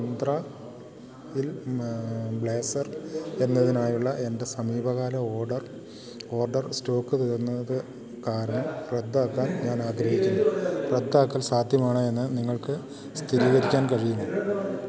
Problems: constant background noise